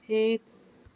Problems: constant background noise